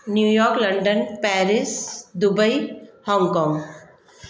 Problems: constant background noise, echo